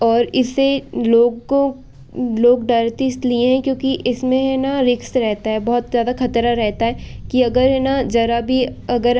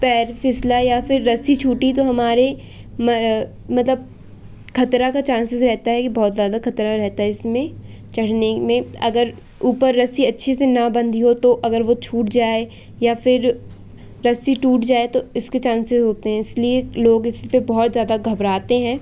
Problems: constant background noise